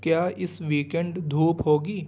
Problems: none marked